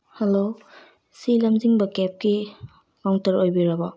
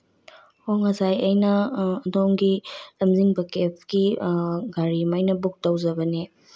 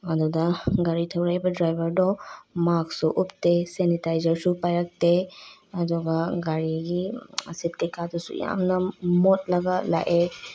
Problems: low volume